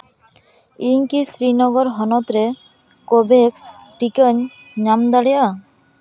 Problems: background sounds at intervals, background conversations at intervals